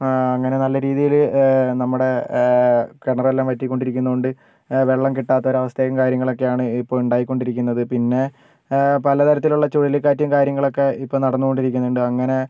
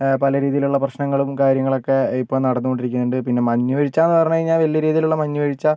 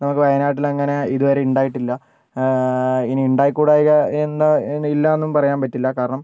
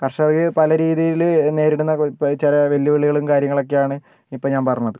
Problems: none marked